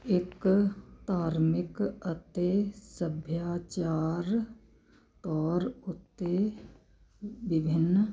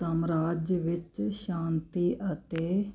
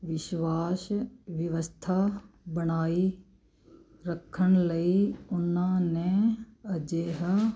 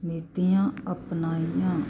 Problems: background sounds at intervals